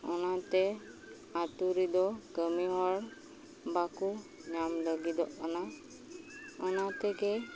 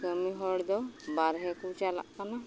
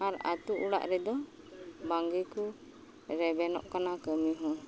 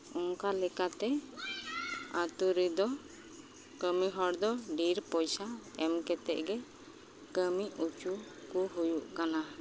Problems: background sounds at intervals